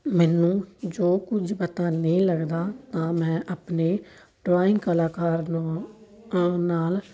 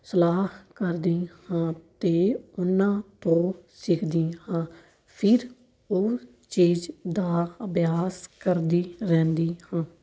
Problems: none marked